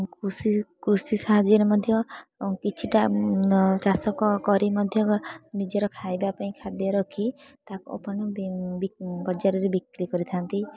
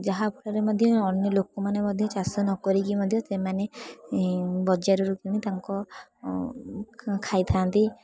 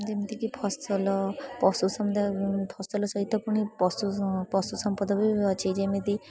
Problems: constant background noise, continuous background conversations